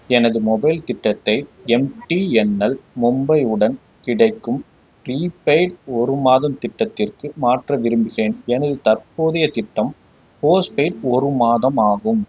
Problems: none marked